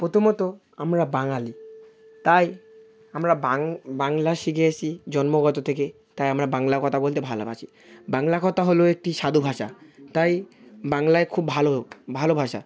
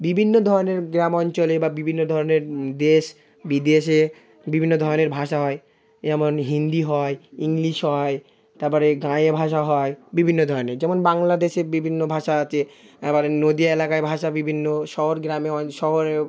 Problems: constant background noise